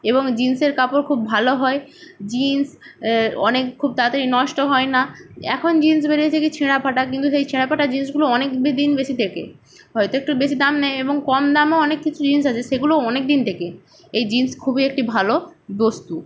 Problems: none marked